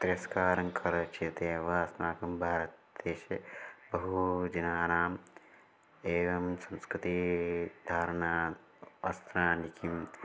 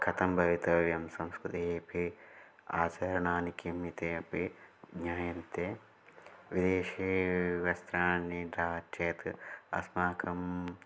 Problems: none marked